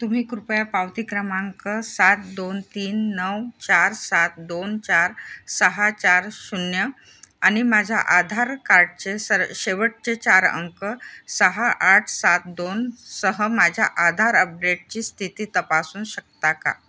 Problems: background sounds at intervals